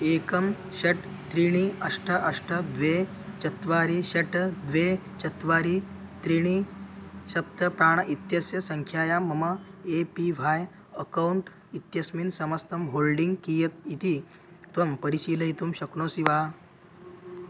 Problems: none marked